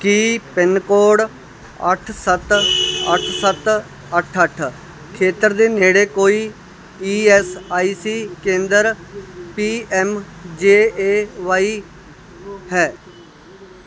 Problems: constant background noise